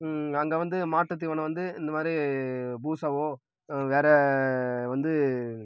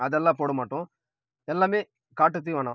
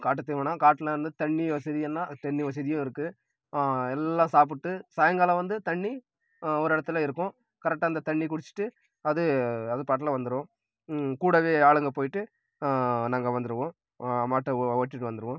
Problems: background sounds at intervals